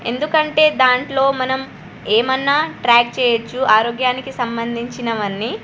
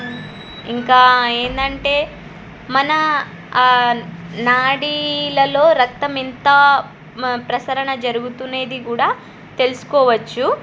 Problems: none marked